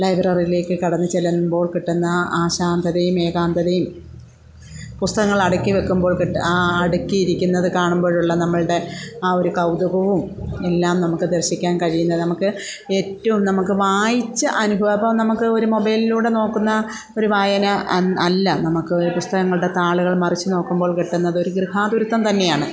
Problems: background sounds at intervals